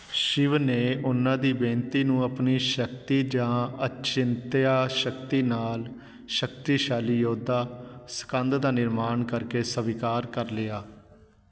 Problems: background conversations at intervals